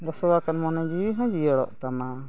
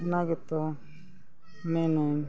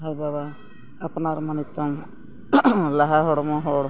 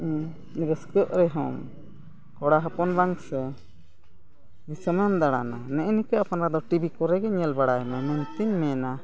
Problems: constant background noise, continuous background conversations